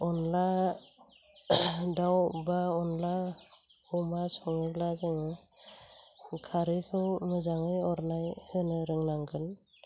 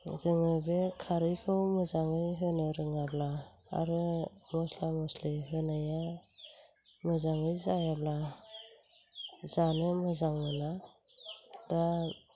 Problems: low volume